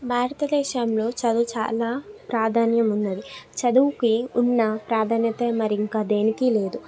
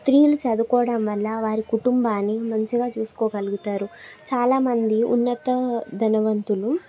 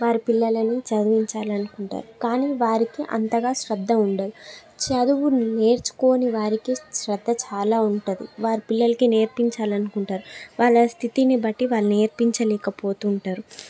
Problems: background conversations at intervals